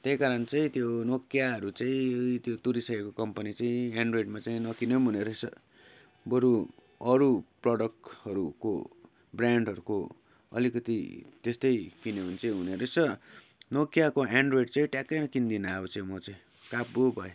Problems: none marked